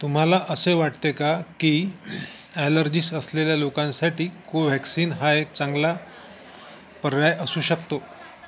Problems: constant background noise, continuous background conversations